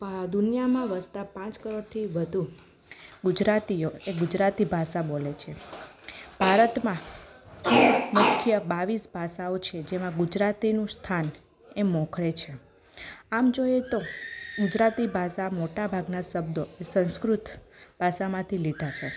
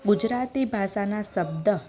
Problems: background conversations at intervals